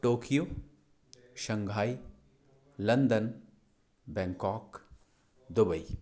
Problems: constant background noise